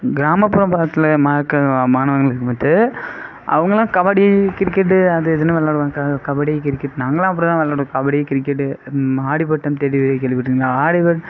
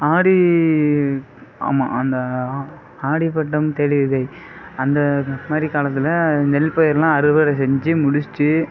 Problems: none marked